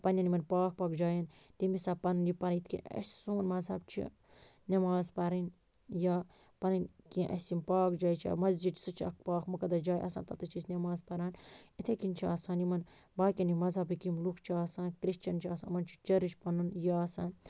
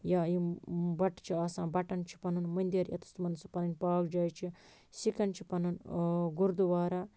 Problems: none marked